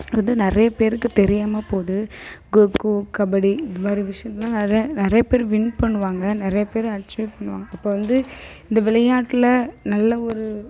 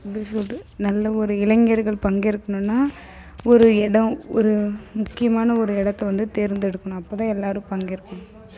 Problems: none marked